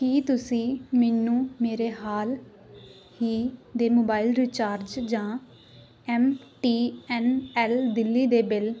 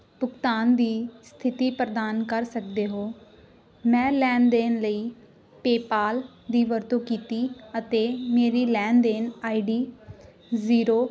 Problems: continuous background conversations